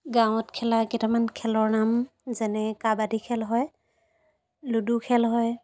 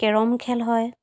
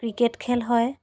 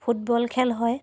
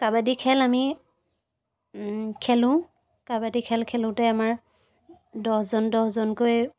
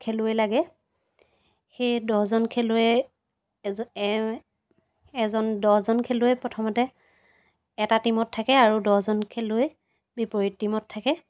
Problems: background sounds at intervals